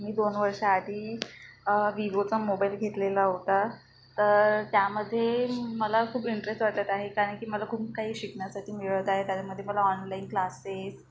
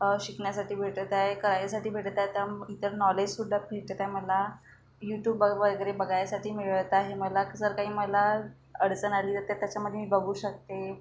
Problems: background sounds at intervals